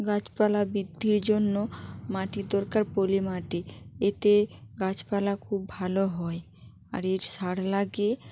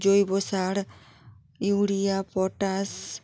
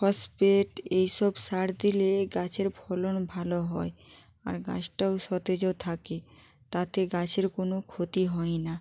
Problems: constant background noise